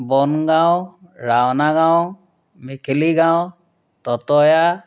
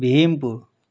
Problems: constant background noise